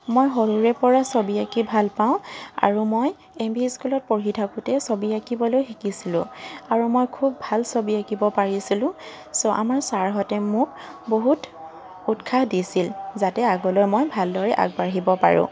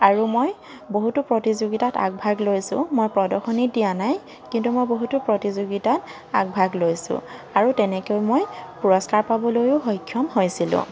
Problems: constant background noise